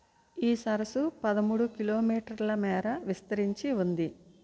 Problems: low volume